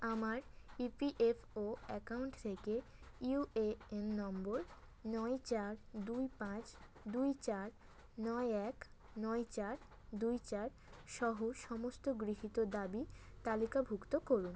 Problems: none marked